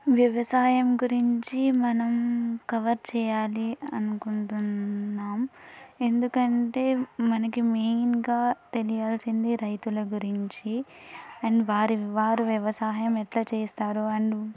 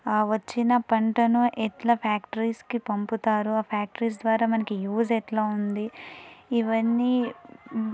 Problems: none marked